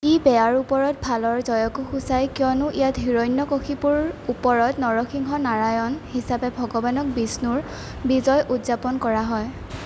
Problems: constant background noise